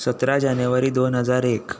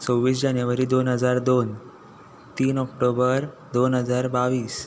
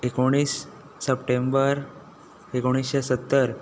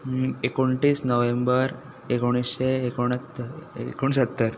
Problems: none marked